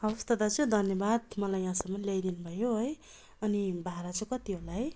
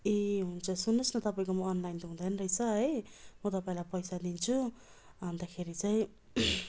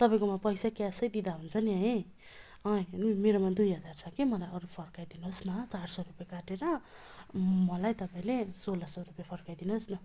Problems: constant background noise, continuous background conversations